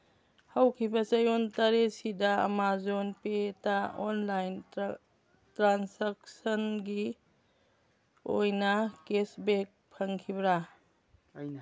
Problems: background conversations at intervals